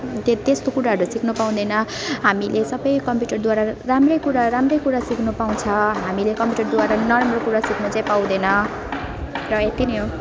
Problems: constant background noise, continuous background conversations